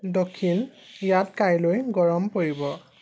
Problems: background sounds at intervals